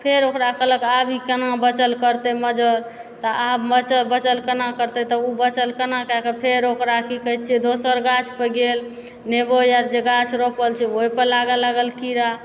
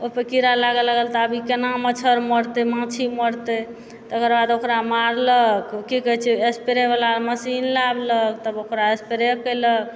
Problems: background sounds at intervals